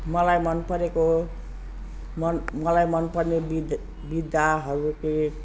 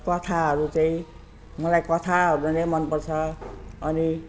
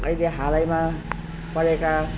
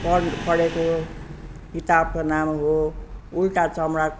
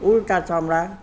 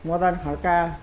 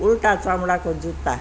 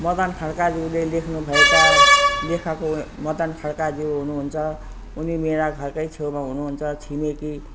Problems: constant background noise